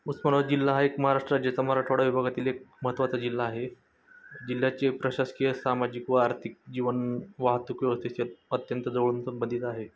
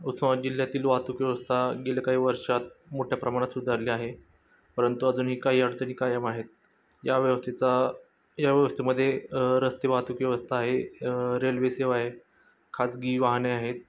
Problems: constant background noise, background conversations at intervals